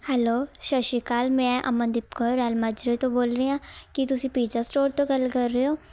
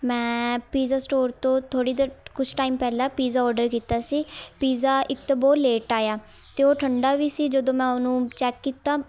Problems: none marked